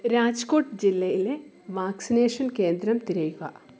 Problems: constant background noise